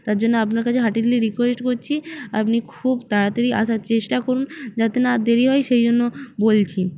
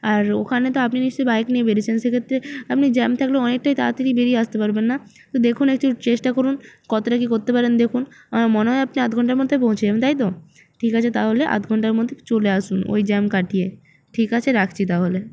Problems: constant background noise